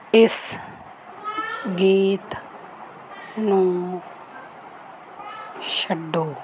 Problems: background sounds at intervals